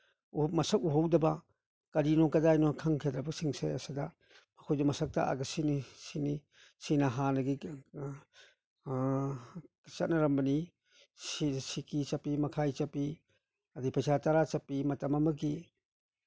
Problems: none marked